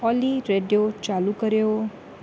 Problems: constant background noise